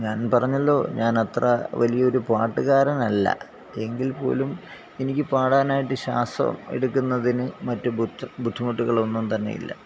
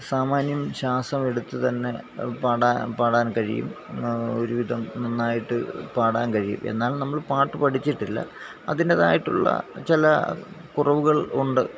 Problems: none marked